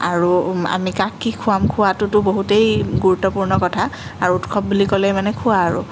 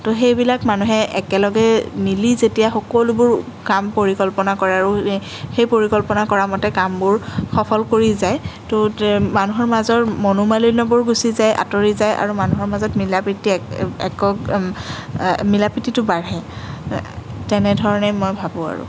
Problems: none marked